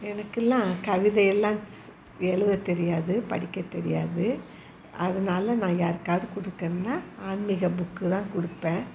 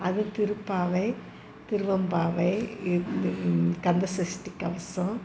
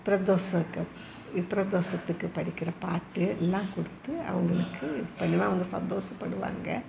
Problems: constant background noise, background conversations at intervals